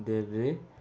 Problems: background sounds at intervals